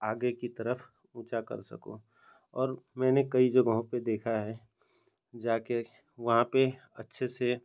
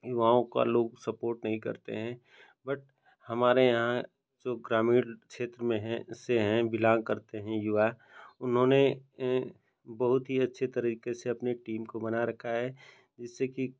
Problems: none marked